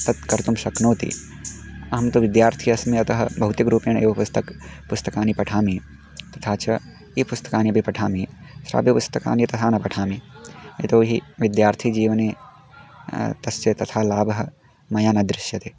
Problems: background sounds at intervals